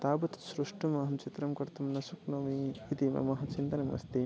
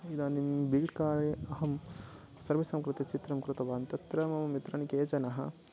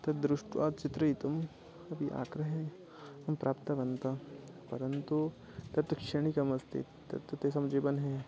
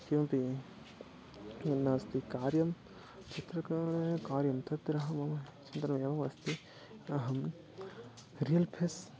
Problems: constant background noise, low volume